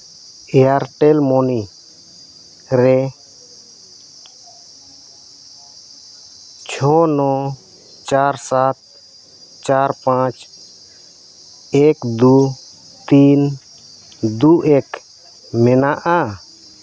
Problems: none marked